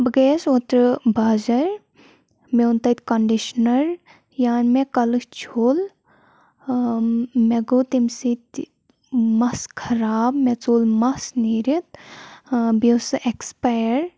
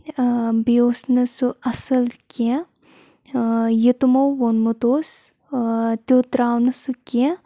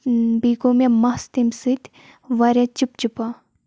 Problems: background sounds at intervals